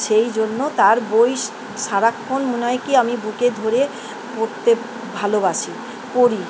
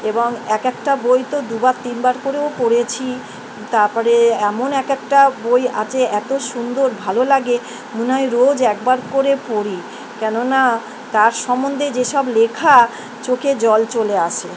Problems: constant background noise